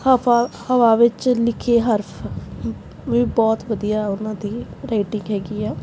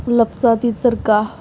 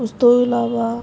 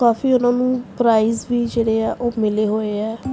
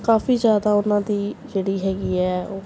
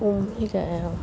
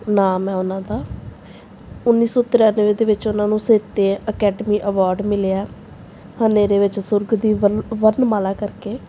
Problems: background sounds at intervals